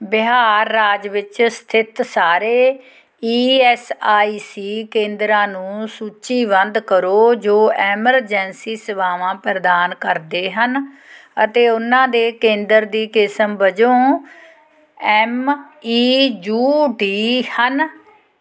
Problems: background conversations at intervals